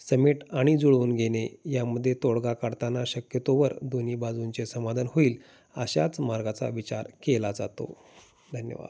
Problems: constant background noise